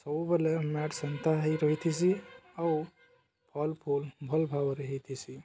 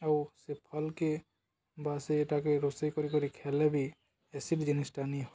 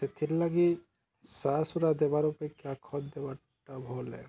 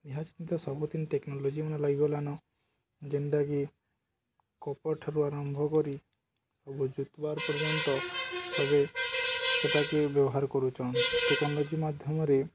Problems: none marked